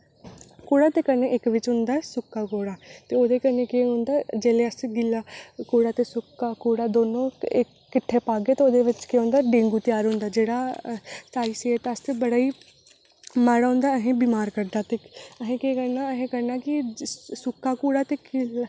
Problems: none marked